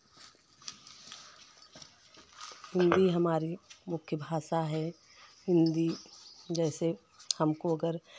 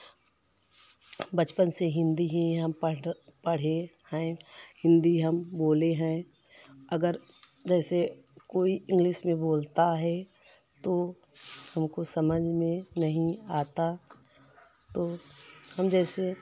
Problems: constant background noise